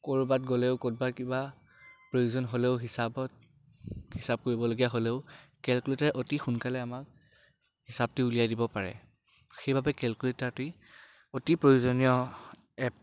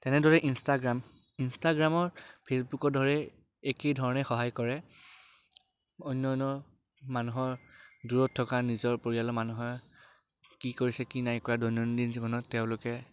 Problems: background sounds at intervals